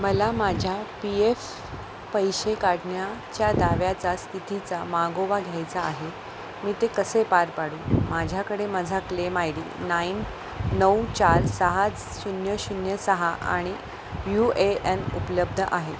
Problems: constant background noise